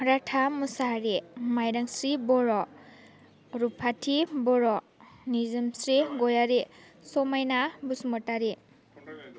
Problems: none marked